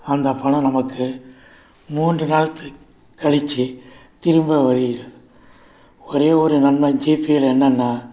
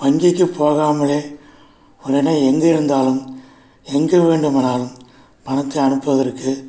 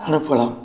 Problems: constant background noise